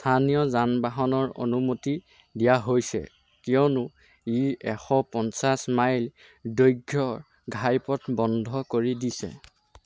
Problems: none marked